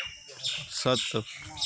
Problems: constant background noise